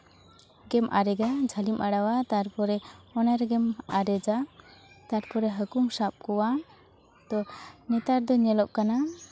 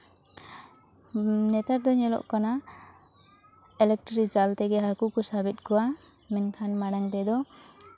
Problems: constant background noise, continuous background conversations